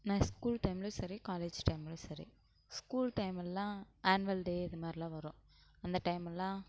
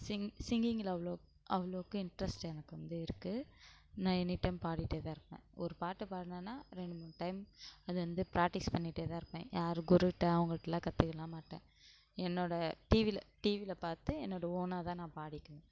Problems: low volume